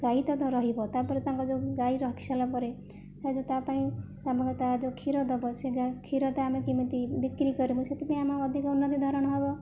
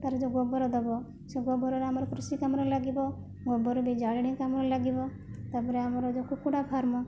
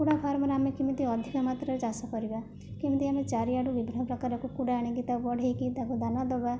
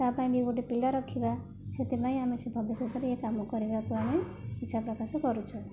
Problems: low volume